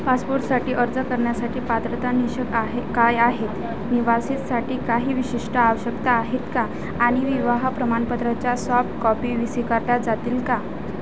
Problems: constant background noise, continuous background conversations